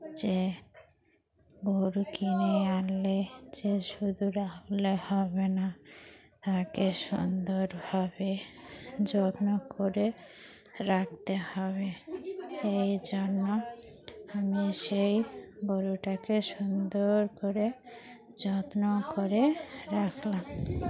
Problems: constant background noise, continuous background conversations